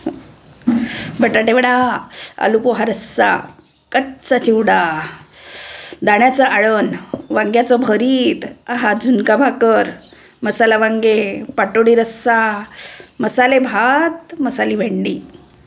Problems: background sounds at intervals